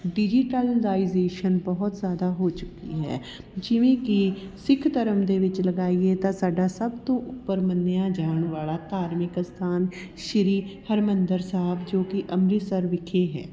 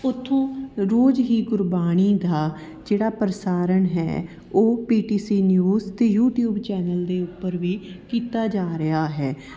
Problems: background sounds at intervals, background conversations at intervals